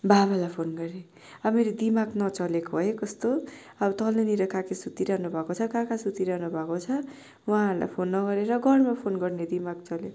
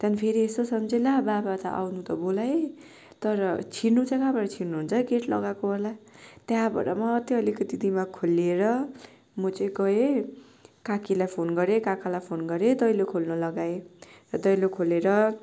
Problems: none marked